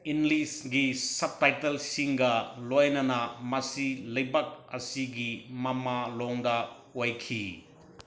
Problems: background sounds at intervals